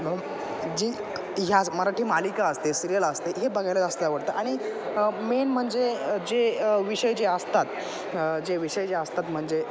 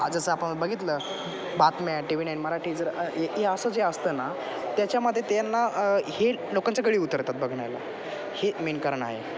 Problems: constant background noise, background conversations at intervals